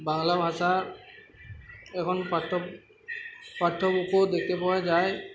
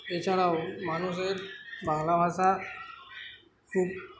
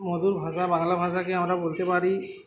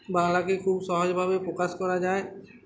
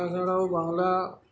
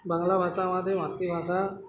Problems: constant background noise, continuous background conversations